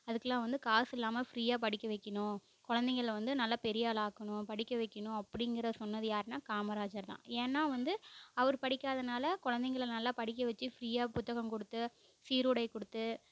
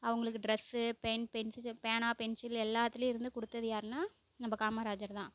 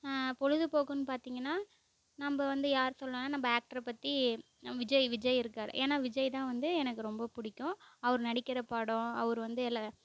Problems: background sounds at intervals